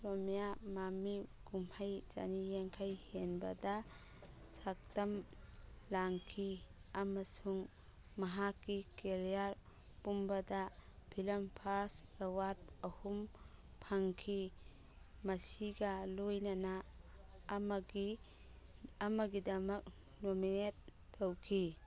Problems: background sounds at intervals